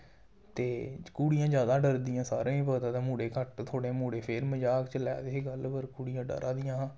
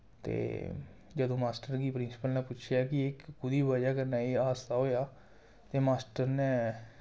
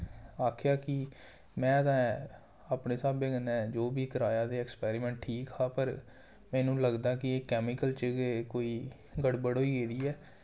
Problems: none marked